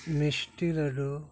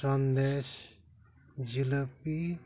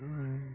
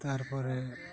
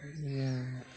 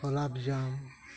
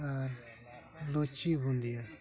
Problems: none marked